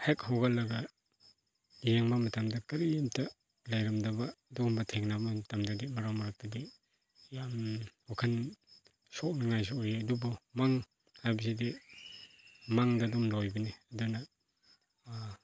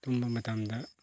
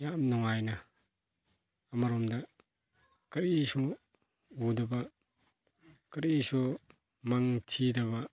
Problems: background conversations at intervals